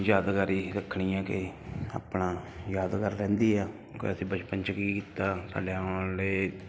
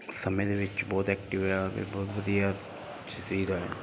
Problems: background sounds at intervals